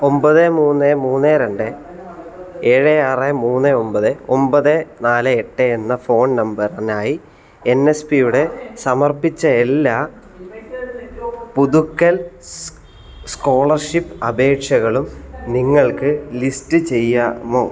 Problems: none marked